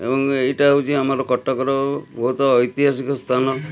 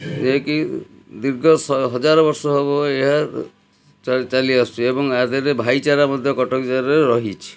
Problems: background sounds at intervals